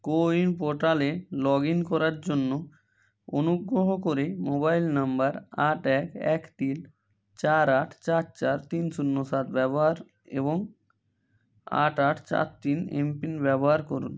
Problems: none marked